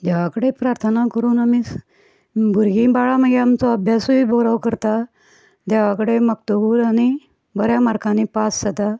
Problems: background sounds at intervals